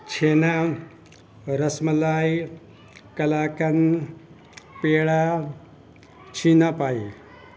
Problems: constant background noise